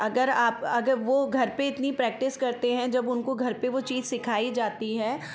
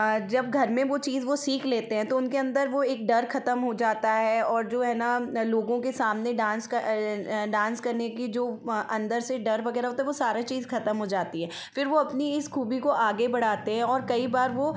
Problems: background sounds at intervals